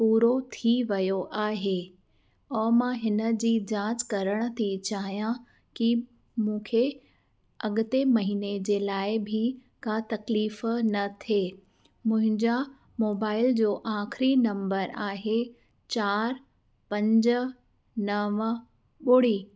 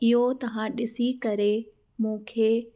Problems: background sounds at intervals, echo